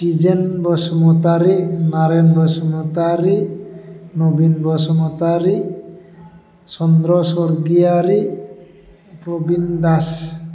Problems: constant background noise